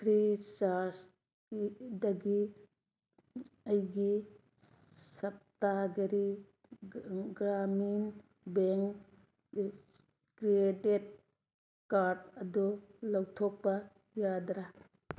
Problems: none marked